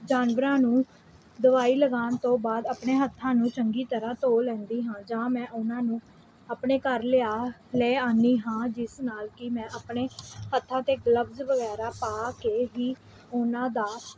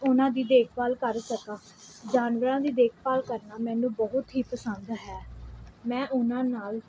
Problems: background sounds at intervals